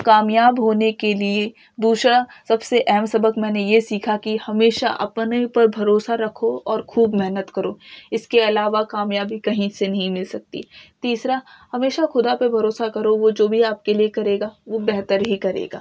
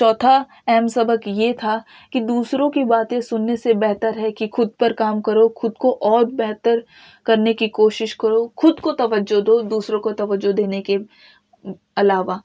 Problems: none marked